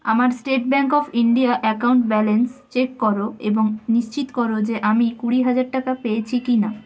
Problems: constant background noise